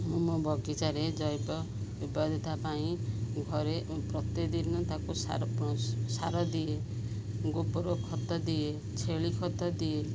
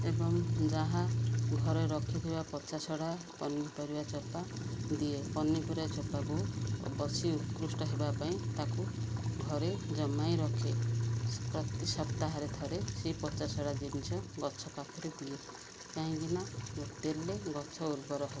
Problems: constant background noise